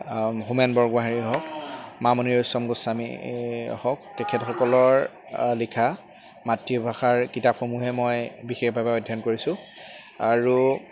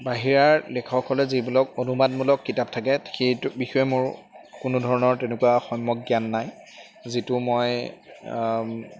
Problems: constant background noise